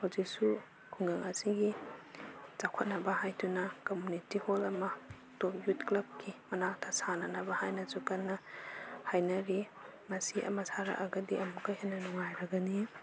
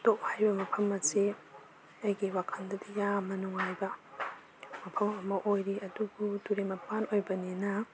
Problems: background sounds at intervals